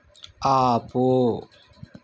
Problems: none marked